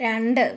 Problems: none marked